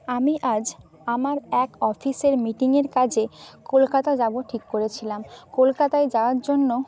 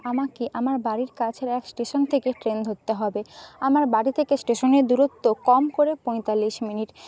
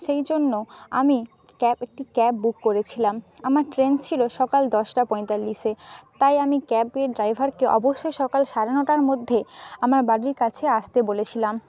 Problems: constant background noise